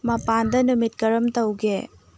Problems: low volume